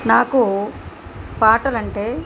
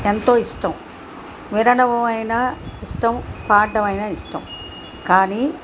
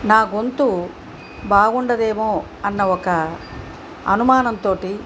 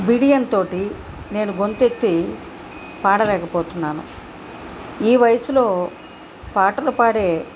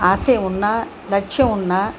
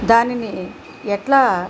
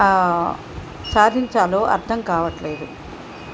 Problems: background sounds at intervals